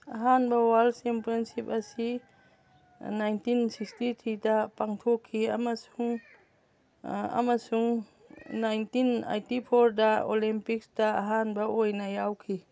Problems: background sounds at intervals, background conversations at intervals